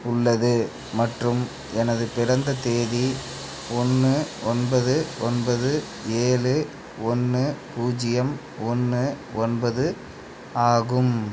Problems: background conversations at intervals